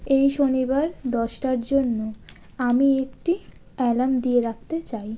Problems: none marked